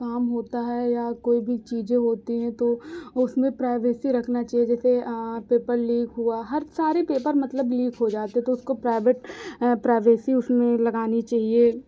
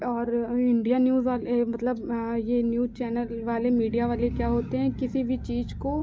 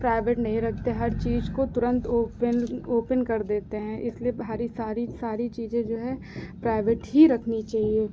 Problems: none marked